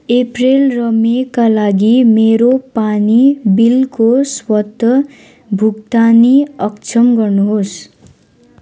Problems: none marked